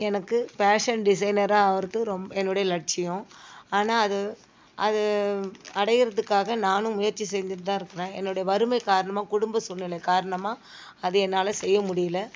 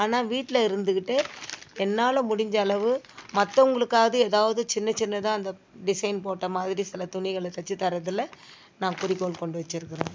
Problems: background sounds at intervals